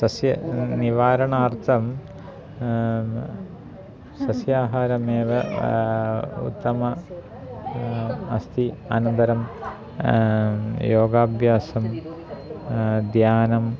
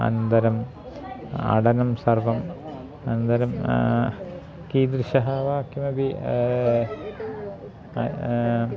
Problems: constant background noise, continuous background conversations